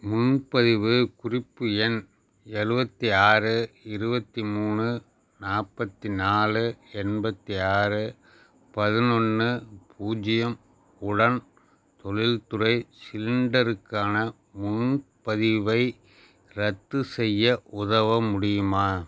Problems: none marked